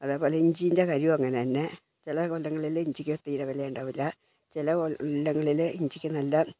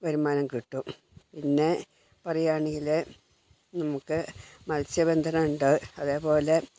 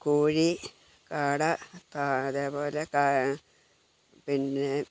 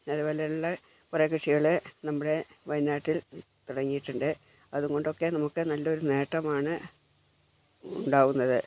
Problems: low volume